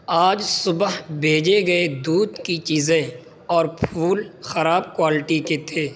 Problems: none marked